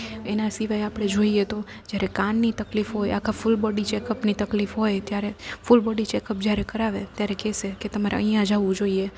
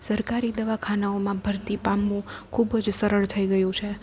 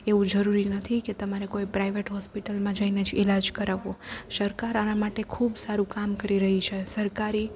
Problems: constant background noise